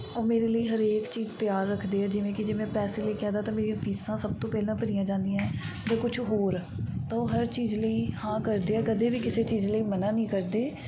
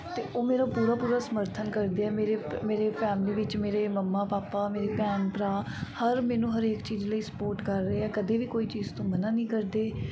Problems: background sounds at intervals, background conversations at intervals